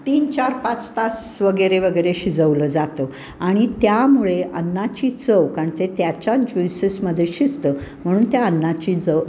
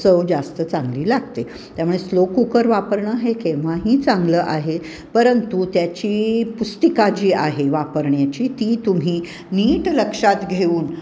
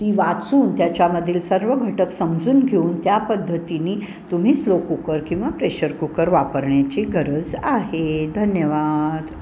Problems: none marked